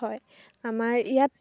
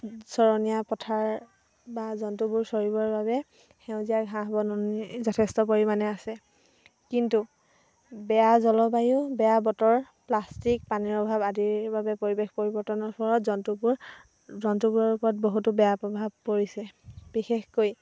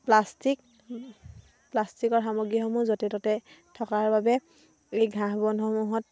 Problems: constant background noise